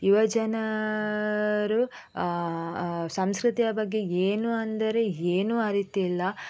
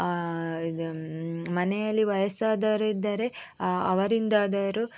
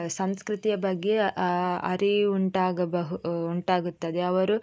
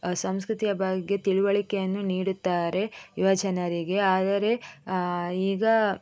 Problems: none marked